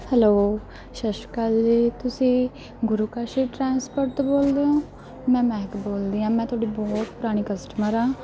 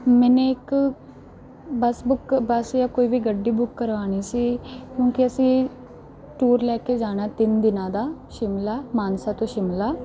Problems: background sounds at intervals, background conversations at intervals